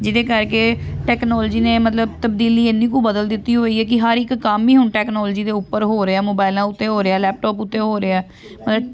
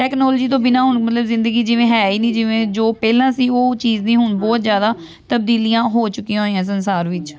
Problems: background sounds at intervals, background conversations at intervals